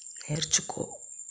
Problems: constant background noise